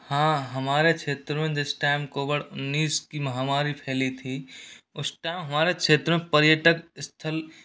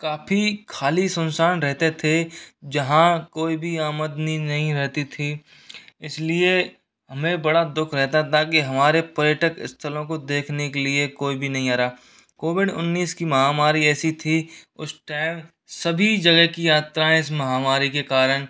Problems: constant background noise